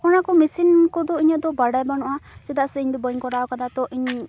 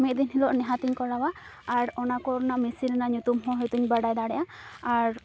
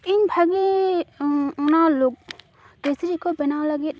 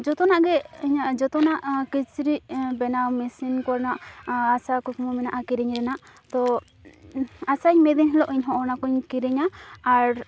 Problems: constant background noise